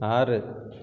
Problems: background sounds at intervals